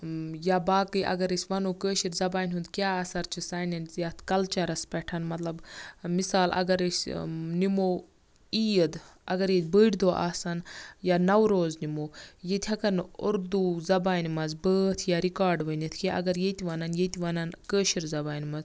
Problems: constant background noise